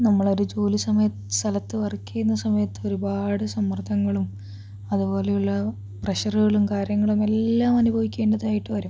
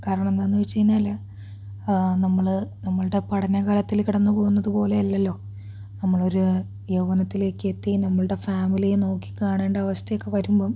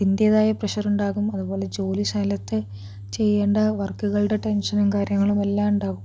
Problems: low volume